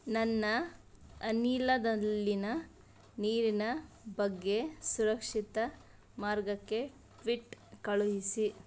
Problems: background conversations at intervals